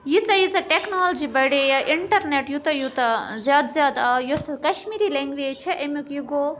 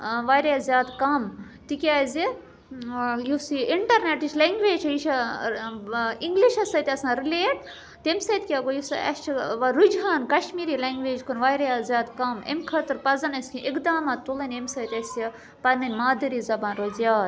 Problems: background sounds at intervals